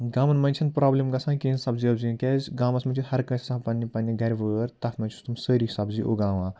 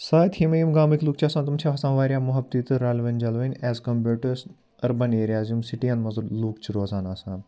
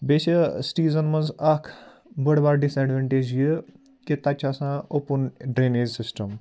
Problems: none marked